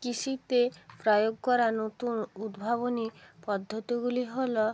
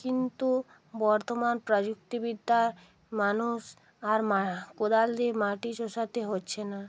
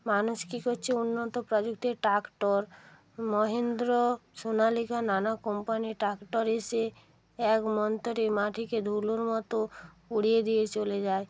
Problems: constant background noise